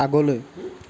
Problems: constant background noise